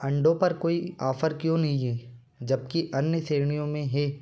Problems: constant background noise